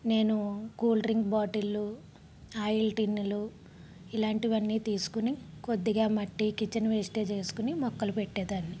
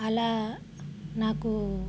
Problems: background sounds at intervals